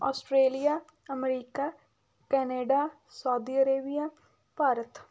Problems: background sounds at intervals